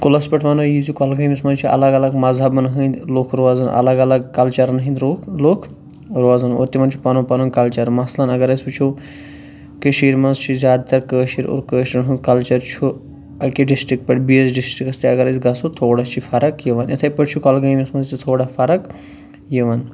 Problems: none marked